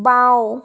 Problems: none marked